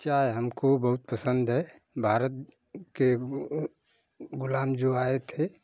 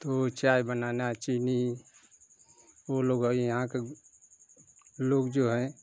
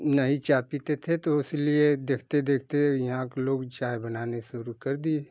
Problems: constant background noise